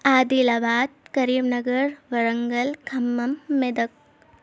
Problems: none marked